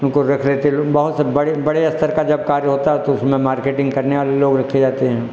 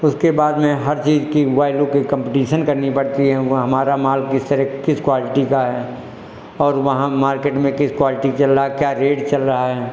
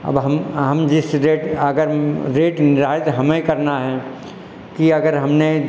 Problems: echo